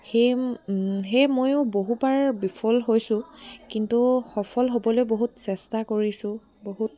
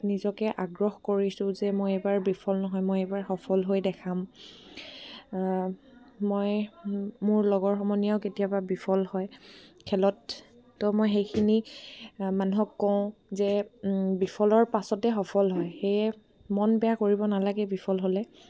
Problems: background sounds at intervals